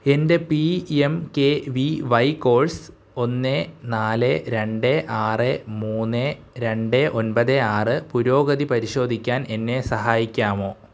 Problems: none marked